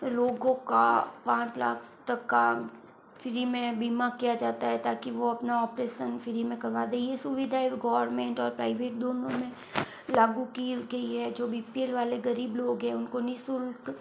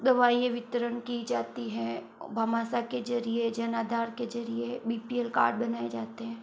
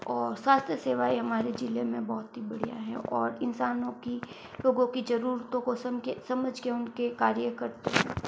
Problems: background sounds at intervals, low volume